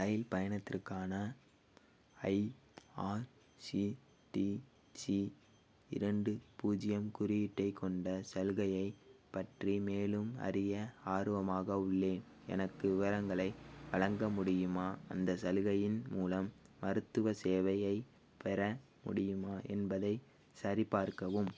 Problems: background sounds at intervals